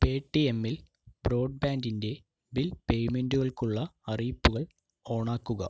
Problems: low volume